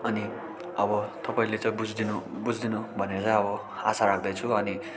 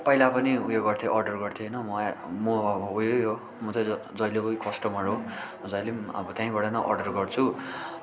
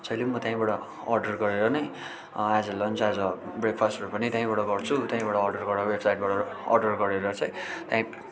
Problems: none marked